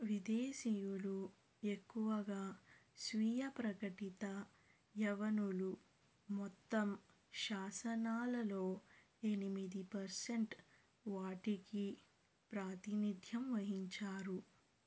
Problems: low volume